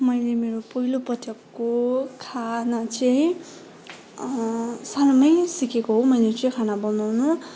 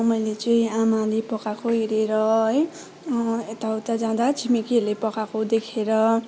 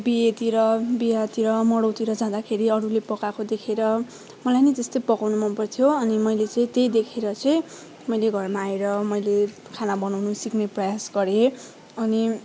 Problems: background sounds at intervals, continuous background conversations